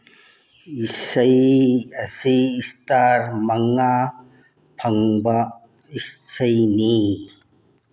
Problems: background sounds at intervals